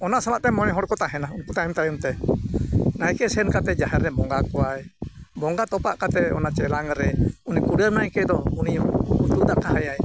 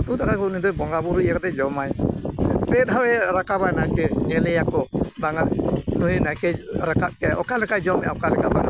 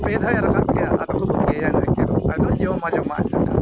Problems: constant background noise